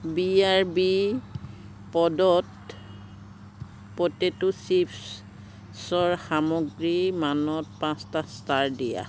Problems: constant background noise